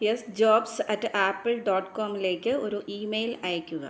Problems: low volume